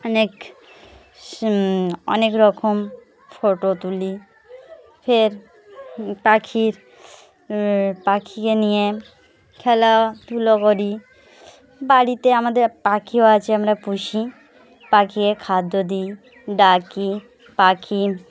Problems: constant background noise, background conversations at intervals